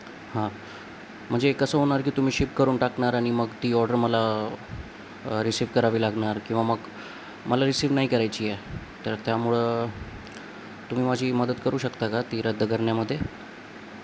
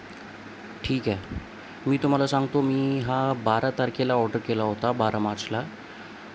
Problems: constant background noise